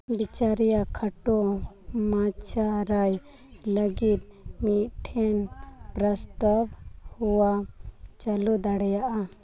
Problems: background sounds at intervals